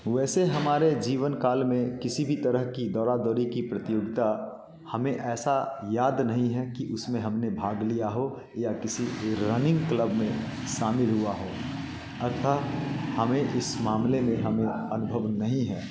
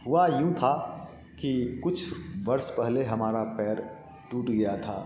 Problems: constant background noise, background conversations at intervals, echo